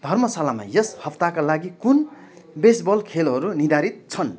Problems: continuous background conversations